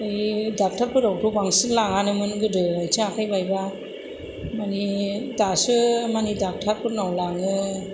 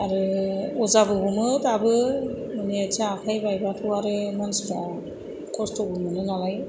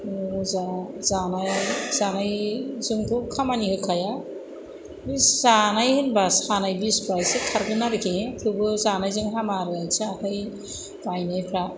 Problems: constant background noise